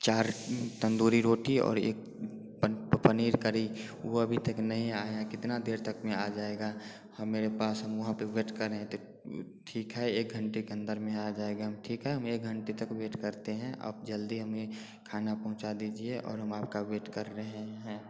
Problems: constant background noise